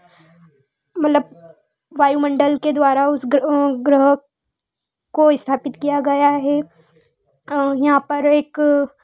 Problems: none marked